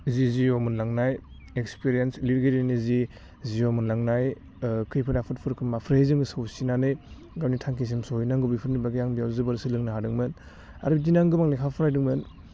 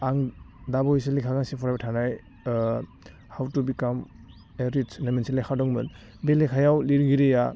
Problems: low volume